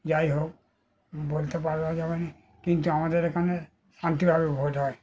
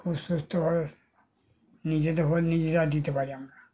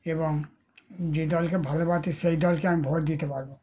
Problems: continuous background conversations